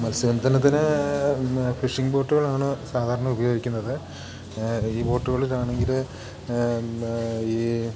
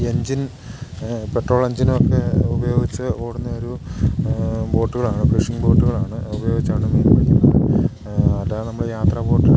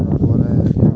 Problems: background sounds at intervals